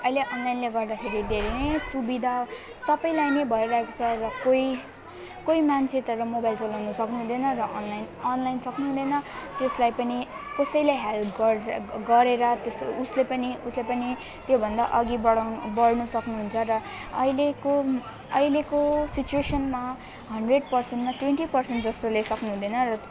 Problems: continuous background conversations